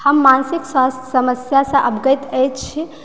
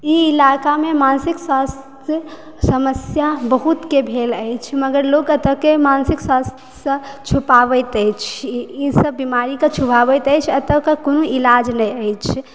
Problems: background sounds at intervals